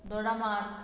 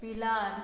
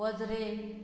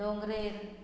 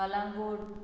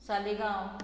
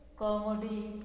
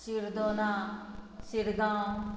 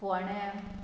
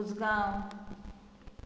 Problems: background sounds at intervals